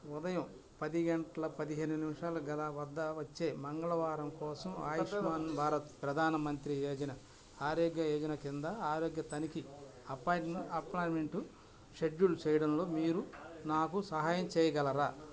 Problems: constant background noise